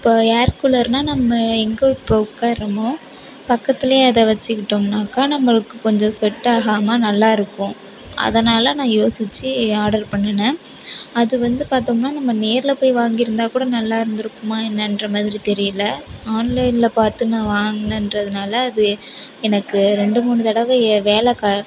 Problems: continuous background conversations